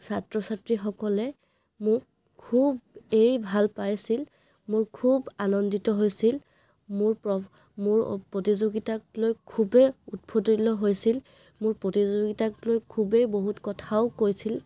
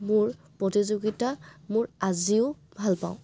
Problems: background sounds at intervals